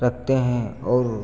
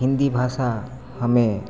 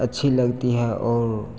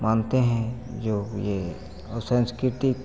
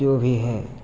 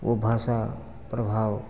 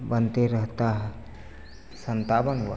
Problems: none marked